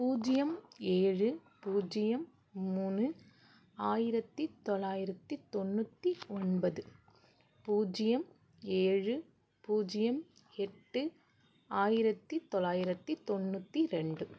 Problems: none marked